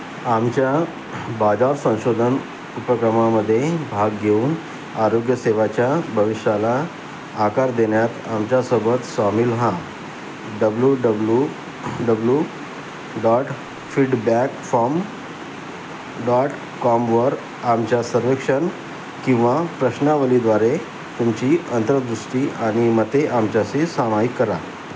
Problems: constant background noise